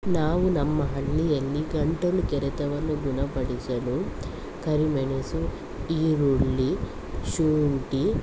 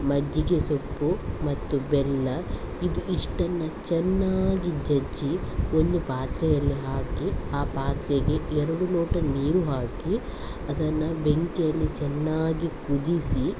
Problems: constant background noise